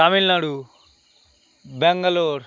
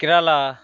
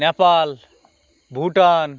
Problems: constant background noise